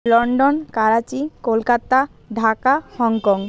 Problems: constant background noise